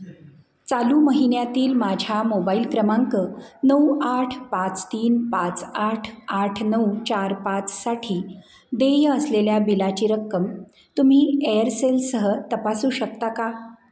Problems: none marked